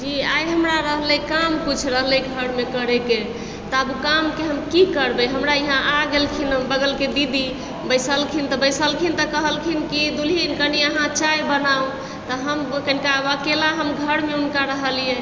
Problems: constant background noise